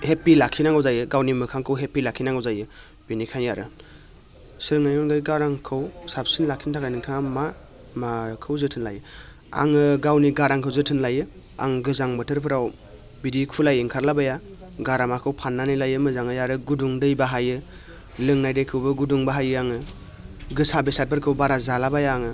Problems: constant background noise